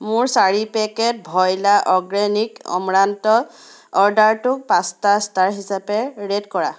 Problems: background sounds at intervals